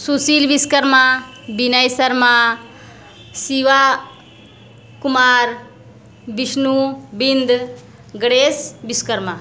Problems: constant background noise